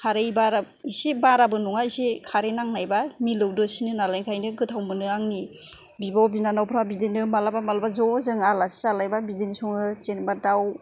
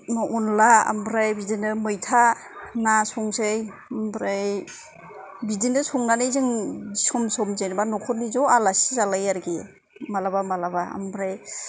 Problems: none marked